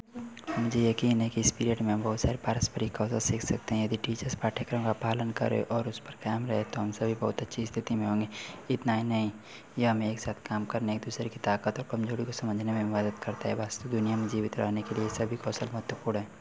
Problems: none marked